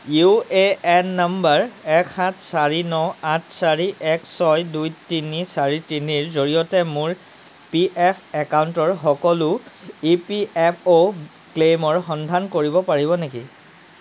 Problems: background sounds at intervals